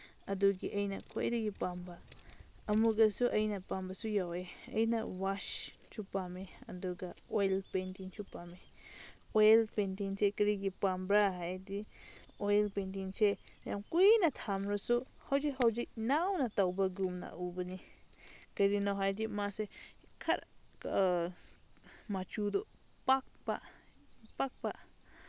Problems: background sounds at intervals